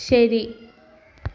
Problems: background sounds at intervals